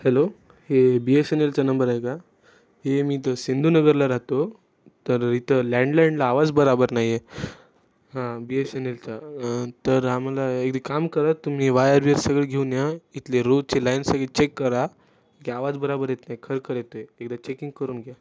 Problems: none marked